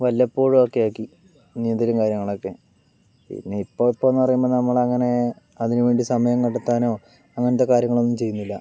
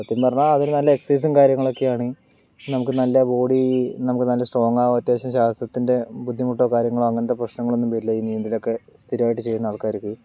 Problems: none marked